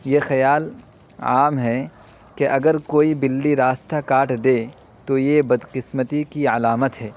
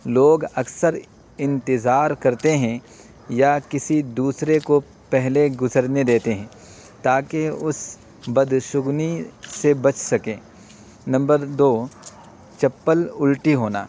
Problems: constant background noise